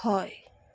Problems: none marked